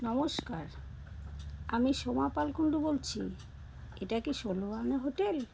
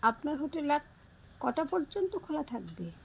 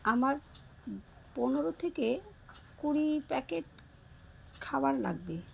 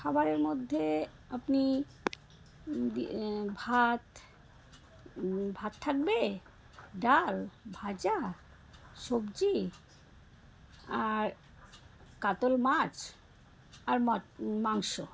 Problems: background sounds at intervals, background conversations at intervals